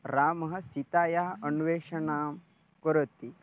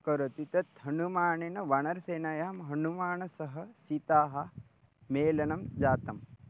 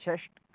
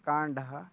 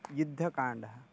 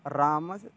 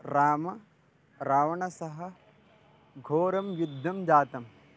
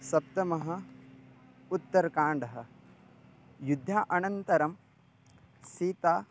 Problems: none marked